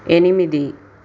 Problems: constant background noise